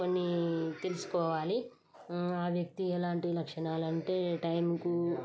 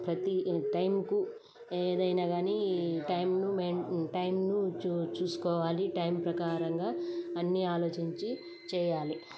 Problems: constant background noise